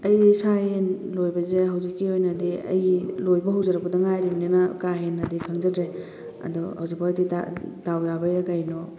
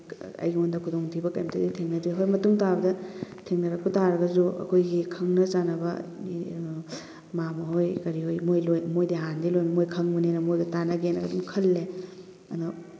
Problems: constant background noise